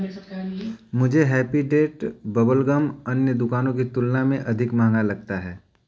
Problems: none marked